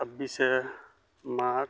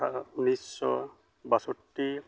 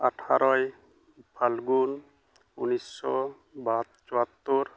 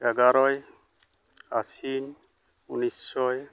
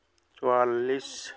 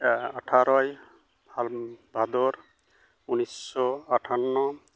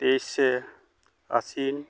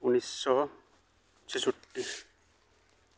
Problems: background sounds at intervals